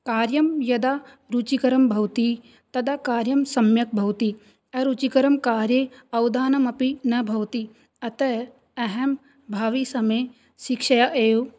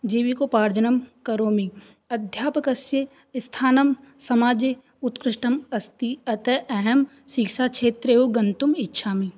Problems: none marked